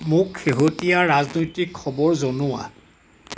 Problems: background sounds at intervals